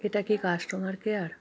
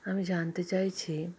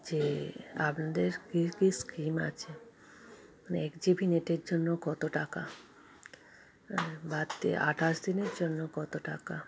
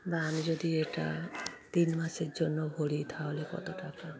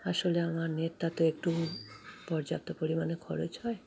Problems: constant background noise